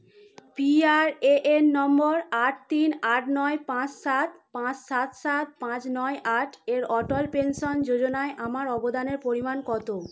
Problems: constant background noise